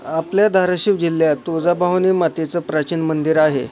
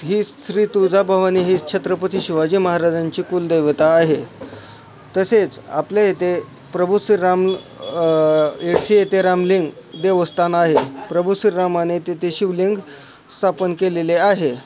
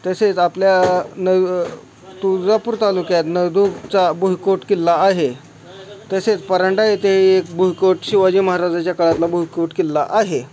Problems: none marked